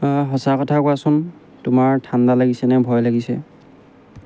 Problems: none marked